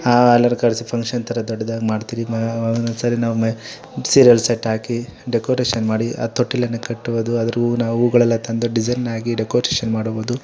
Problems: background conversations at intervals